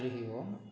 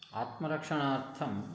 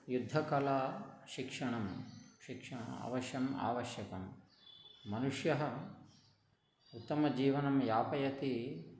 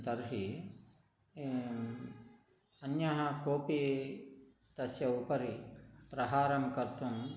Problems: background conversations at intervals, low volume